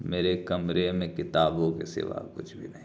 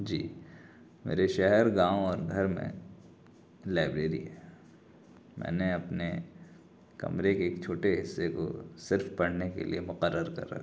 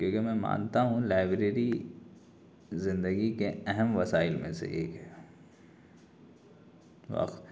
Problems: constant background noise